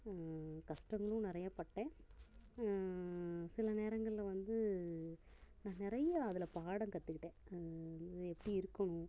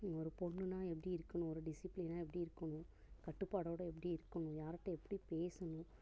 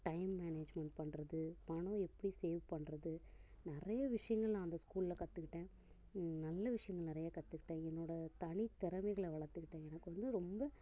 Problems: constant background noise